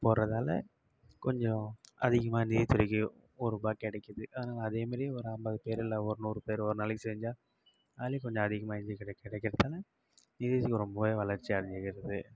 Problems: low volume